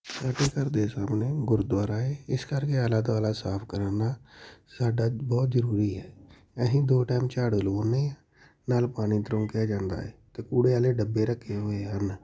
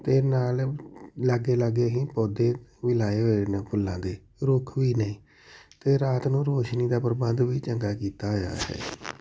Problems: none marked